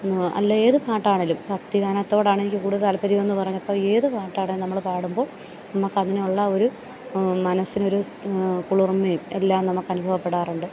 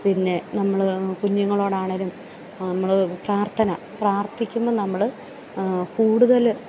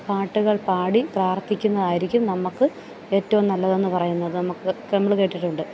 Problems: background sounds at intervals, low volume